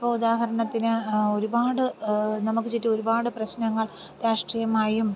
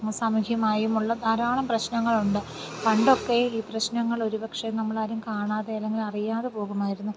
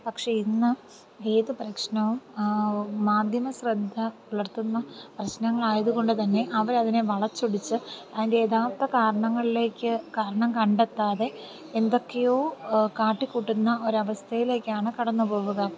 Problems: none marked